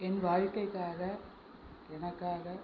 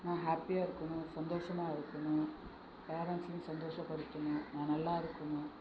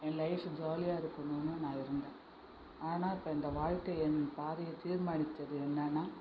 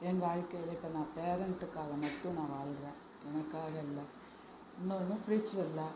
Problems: constant background noise